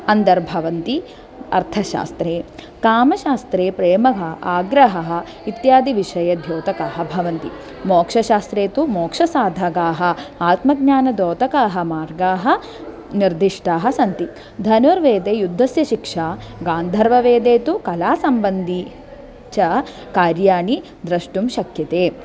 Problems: none marked